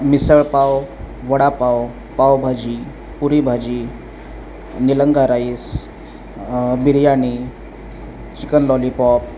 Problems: none marked